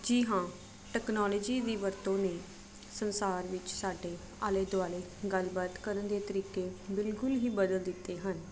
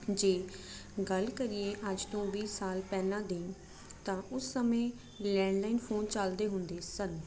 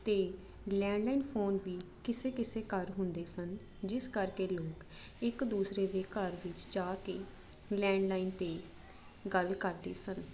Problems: constant background noise